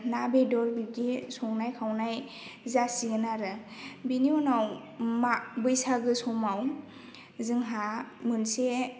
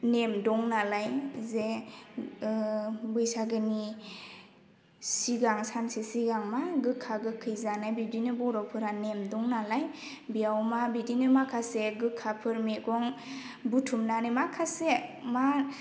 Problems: none marked